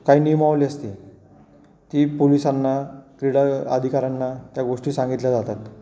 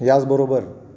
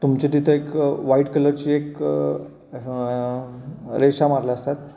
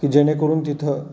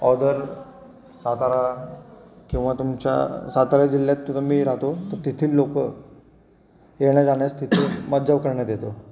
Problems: none marked